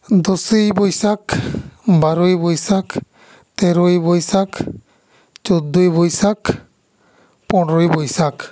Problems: echo